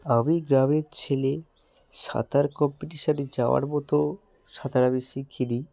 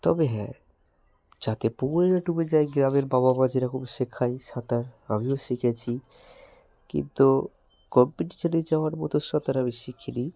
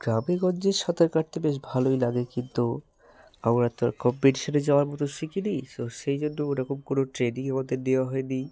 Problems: none marked